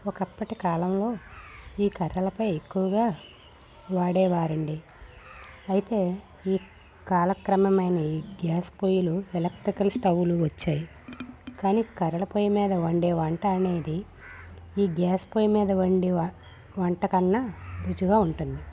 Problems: none marked